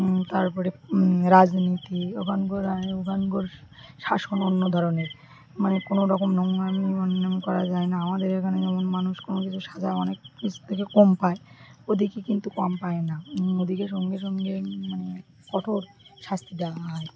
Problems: background conversations at intervals